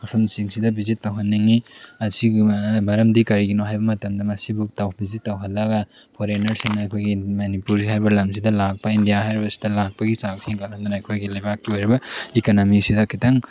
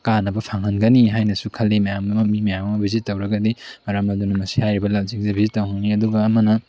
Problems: none marked